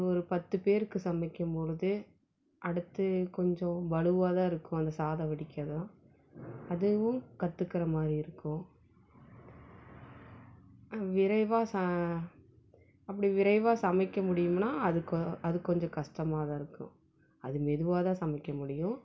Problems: none marked